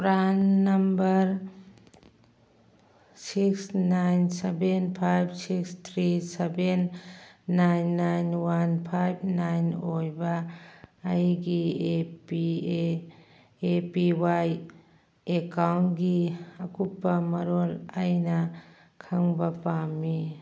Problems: none marked